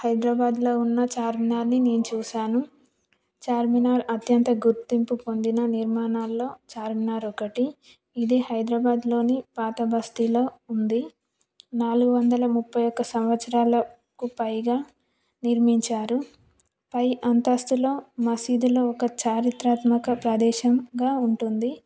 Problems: none marked